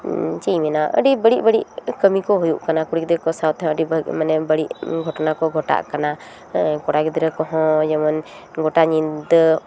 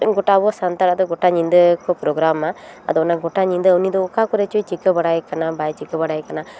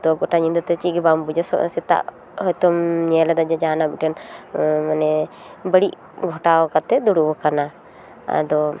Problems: none marked